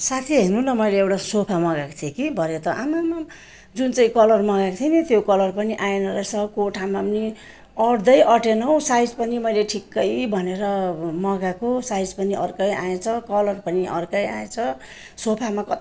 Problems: constant background noise